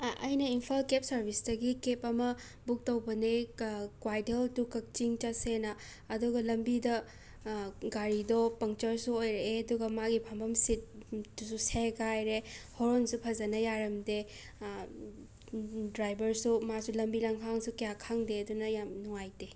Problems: constant background noise